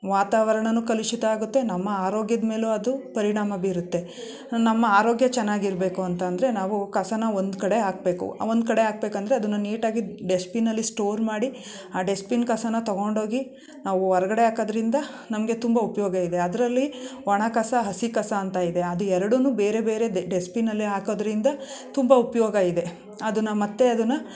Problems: none marked